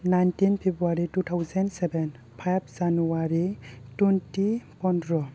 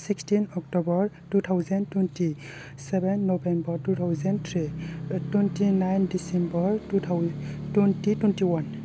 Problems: low volume